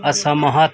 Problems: background sounds at intervals